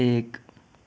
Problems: background sounds at intervals